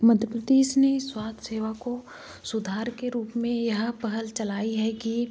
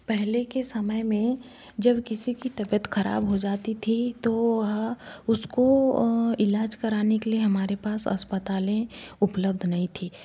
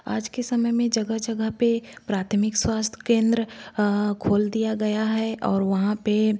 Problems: constant background noise